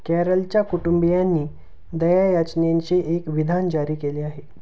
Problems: none marked